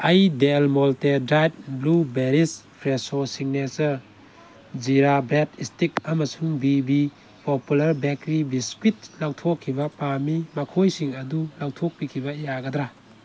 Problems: constant background noise